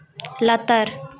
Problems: background conversations at intervals